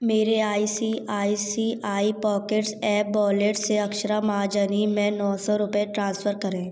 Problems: background sounds at intervals